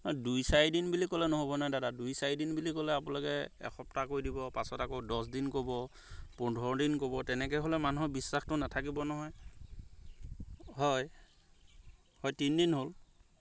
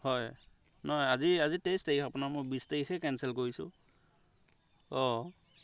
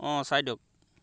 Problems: none marked